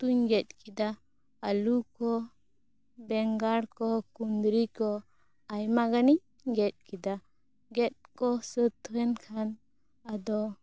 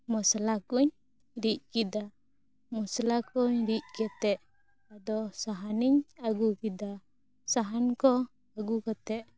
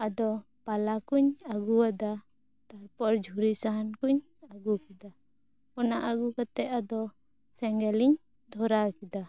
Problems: none marked